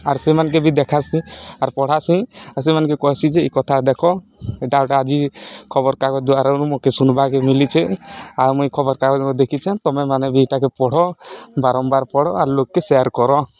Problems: none marked